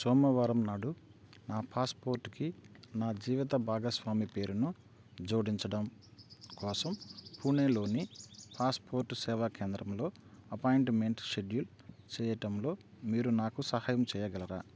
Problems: constant background noise